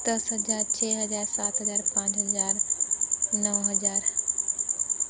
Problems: constant background noise